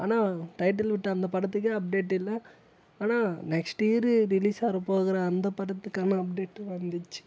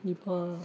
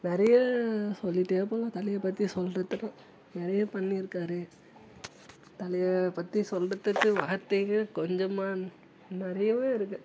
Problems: low volume